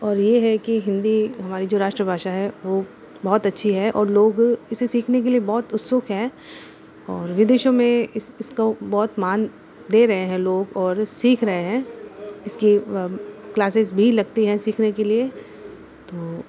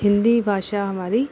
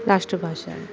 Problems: constant background noise